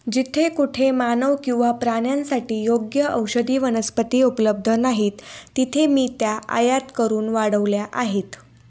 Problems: none marked